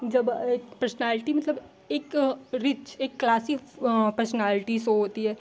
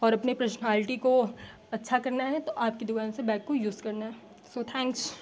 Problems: constant background noise